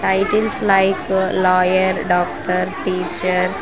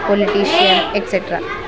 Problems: constant background noise